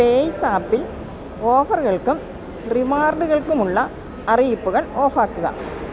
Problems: constant background noise